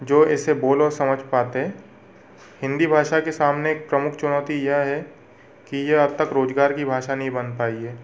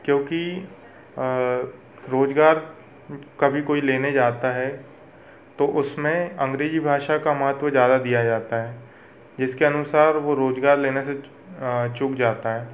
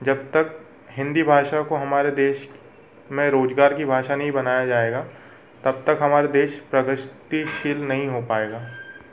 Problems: constant background noise, background conversations at intervals